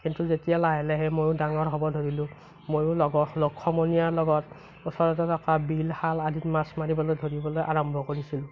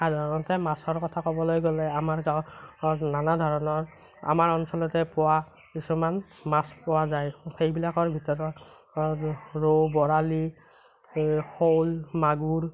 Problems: none marked